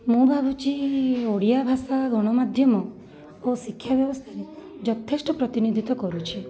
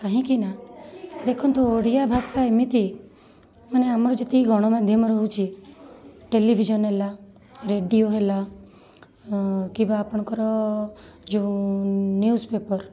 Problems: constant background noise, continuous background conversations